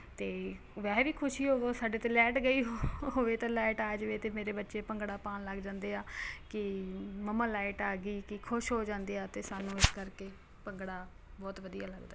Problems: constant background noise